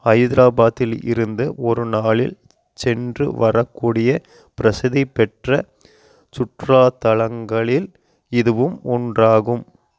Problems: none marked